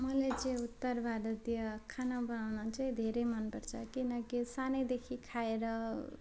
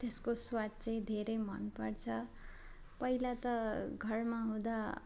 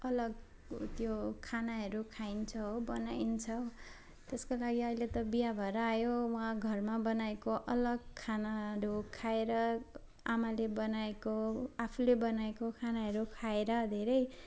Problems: constant background noise, background conversations at intervals